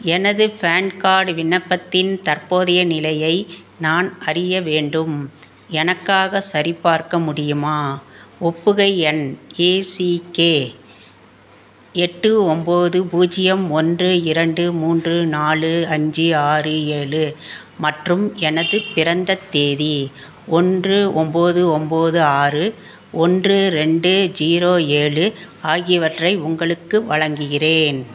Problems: constant background noise